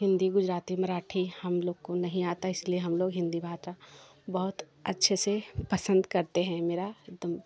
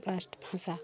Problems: continuous background conversations